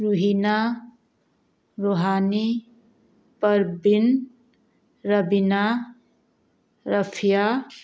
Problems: background sounds at intervals